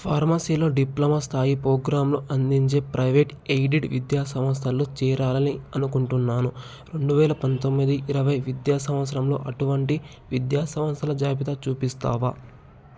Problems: none marked